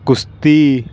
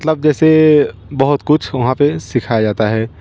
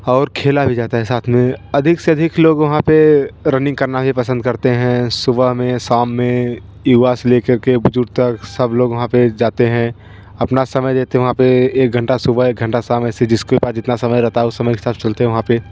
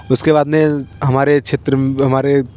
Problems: constant background noise